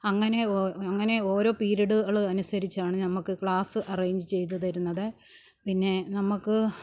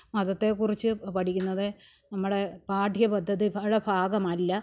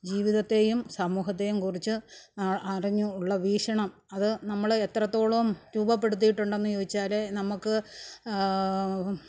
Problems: background sounds at intervals, low volume